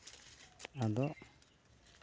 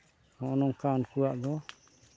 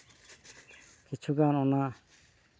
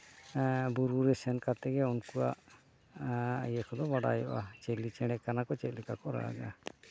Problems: background sounds at intervals